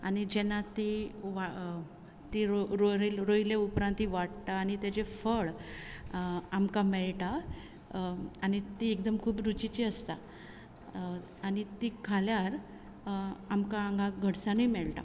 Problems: constant background noise